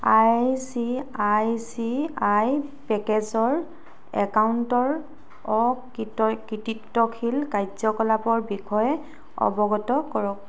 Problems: background sounds at intervals